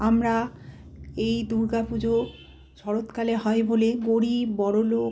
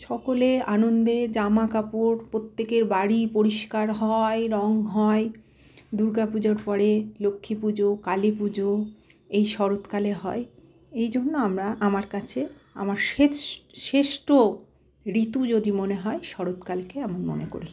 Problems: constant background noise